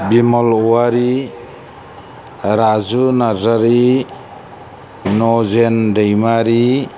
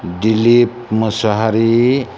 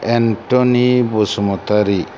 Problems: none marked